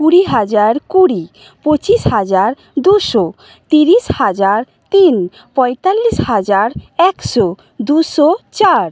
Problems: constant background noise